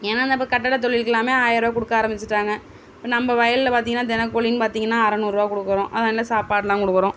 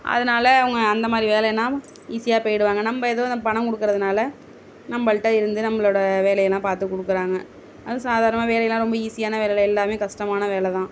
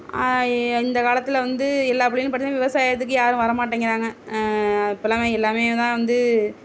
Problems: background sounds at intervals